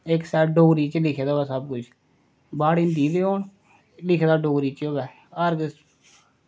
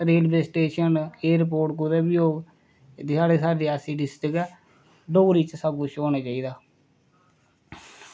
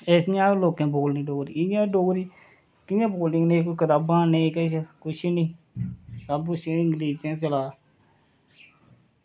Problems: none marked